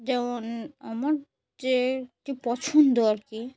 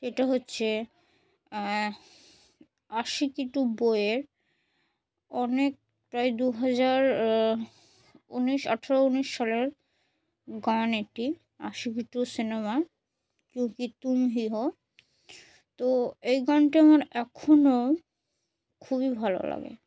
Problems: none marked